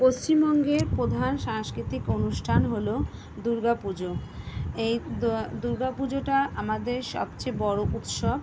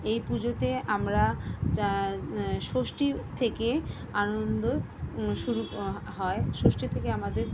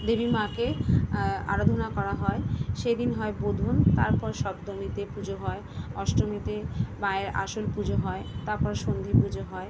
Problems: none marked